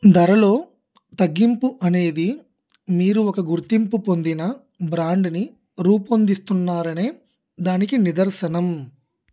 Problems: background conversations at intervals